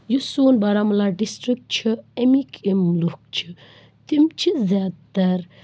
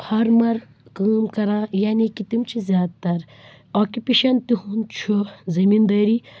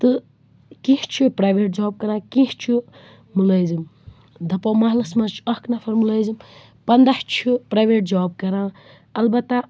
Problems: constant background noise